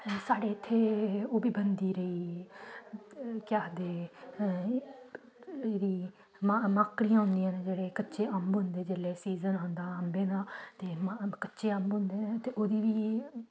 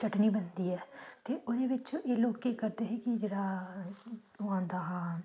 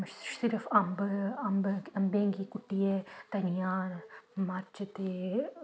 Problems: background sounds at intervals